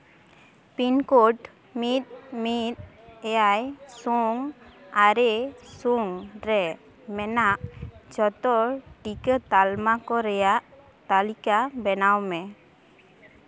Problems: background sounds at intervals, background conversations at intervals